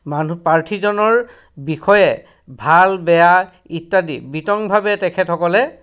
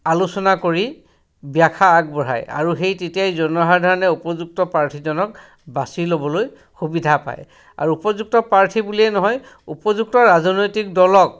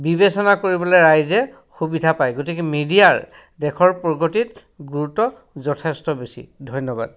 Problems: background sounds at intervals, background conversations at intervals